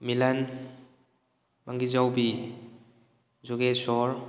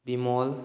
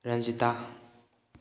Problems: none marked